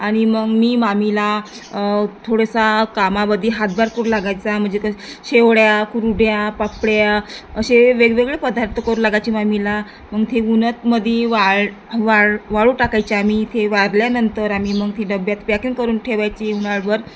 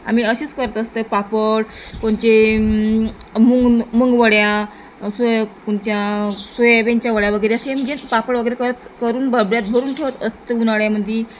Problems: constant background noise